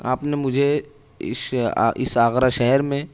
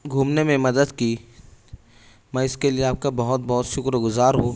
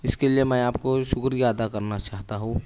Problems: none marked